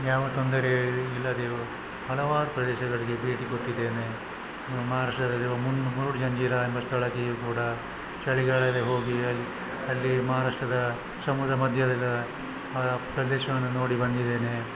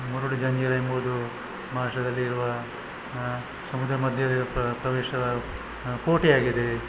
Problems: constant background noise